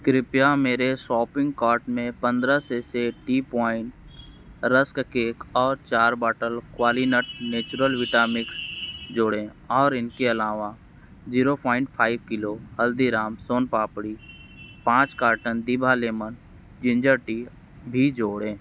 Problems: background sounds at intervals